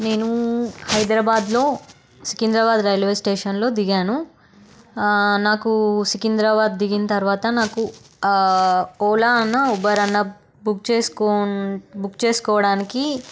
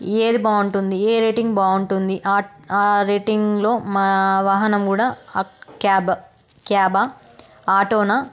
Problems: none marked